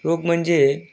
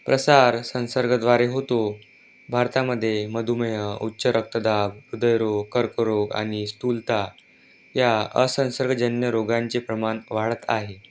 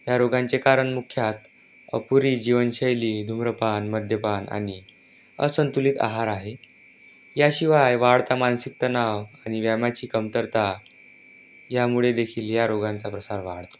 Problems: constant background noise